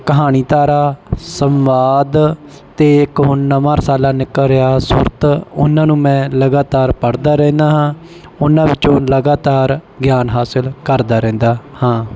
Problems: none marked